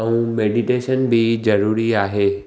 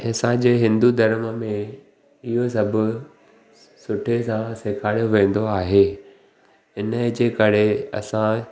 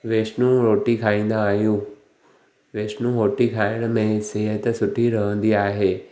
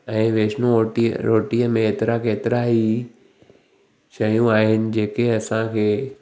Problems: none marked